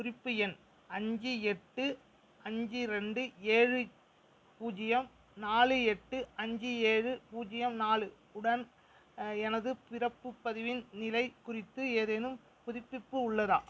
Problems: background sounds at intervals